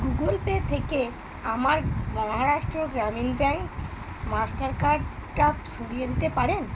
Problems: constant background noise